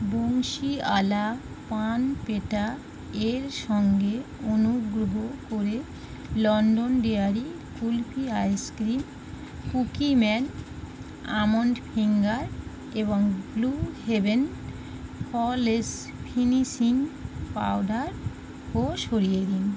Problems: constant background noise